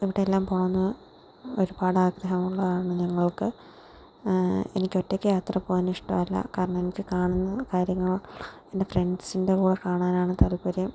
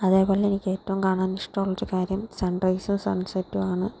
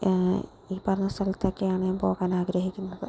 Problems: background sounds at intervals